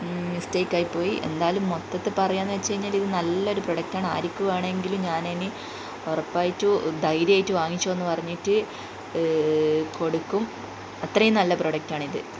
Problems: constant background noise